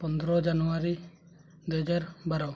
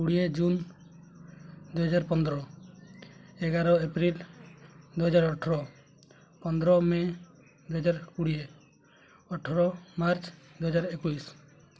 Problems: low volume